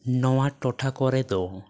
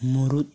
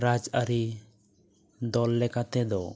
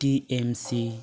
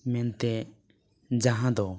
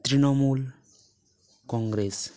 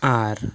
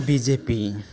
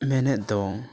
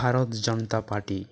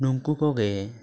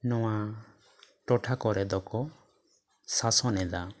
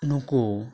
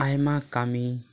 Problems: constant background noise, continuous background conversations